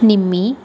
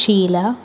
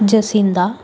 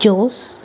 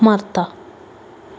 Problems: constant background noise